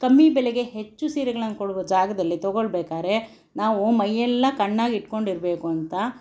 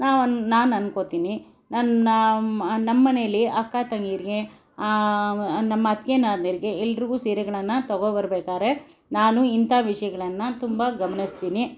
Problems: background sounds at intervals